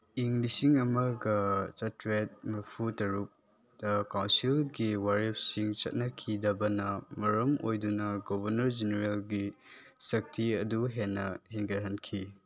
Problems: none marked